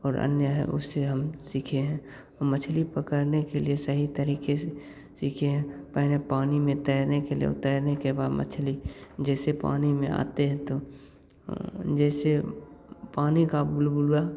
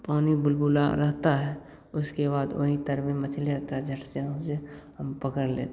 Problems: none marked